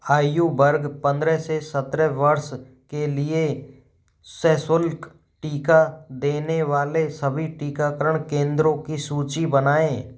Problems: none marked